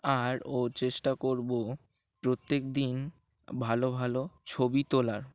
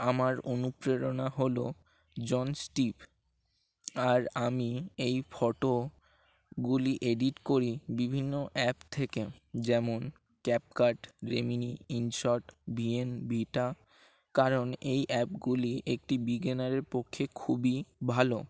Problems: constant background noise